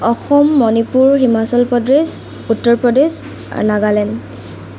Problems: constant background noise